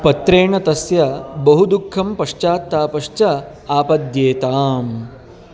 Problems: constant background noise